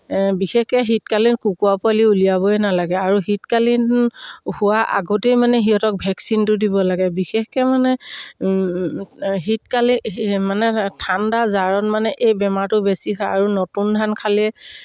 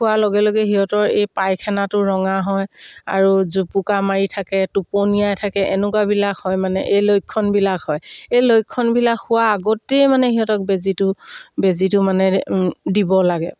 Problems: none marked